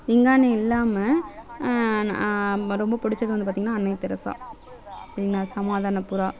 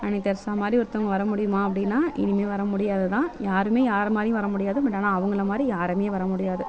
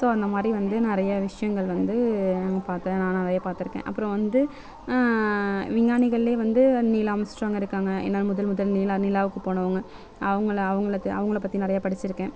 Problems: none marked